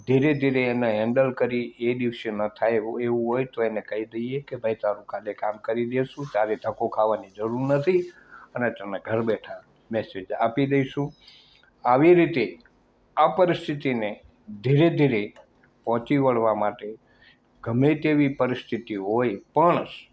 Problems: none marked